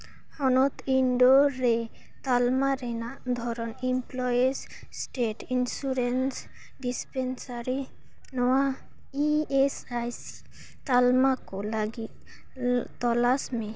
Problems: none marked